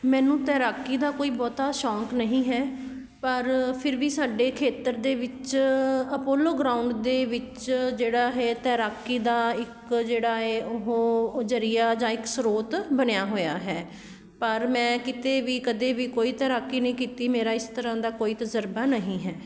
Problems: none marked